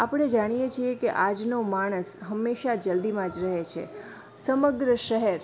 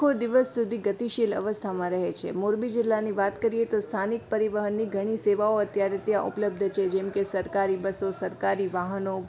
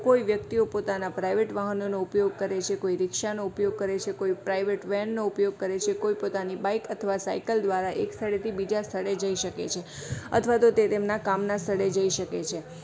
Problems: background sounds at intervals